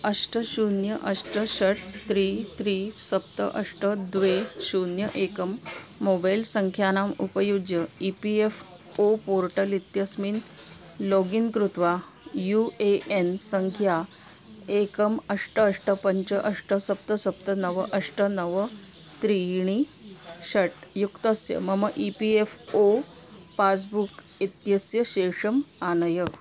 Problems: constant background noise